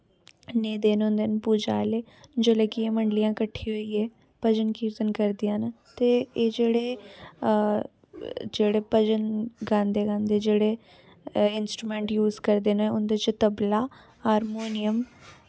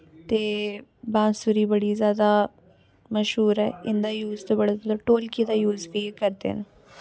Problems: constant background noise